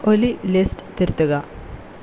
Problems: constant background noise